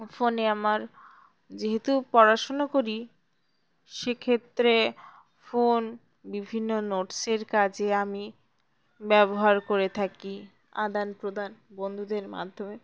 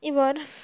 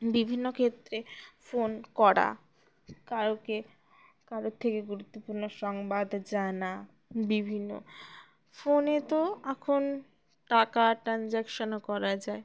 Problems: background sounds at intervals